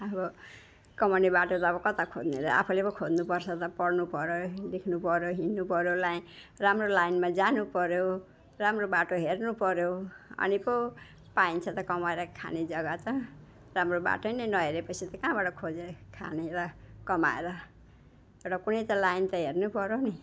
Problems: background sounds at intervals